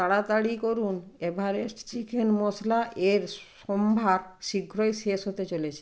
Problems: none marked